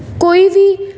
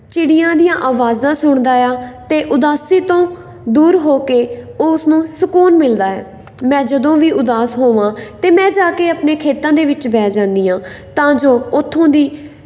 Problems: background sounds at intervals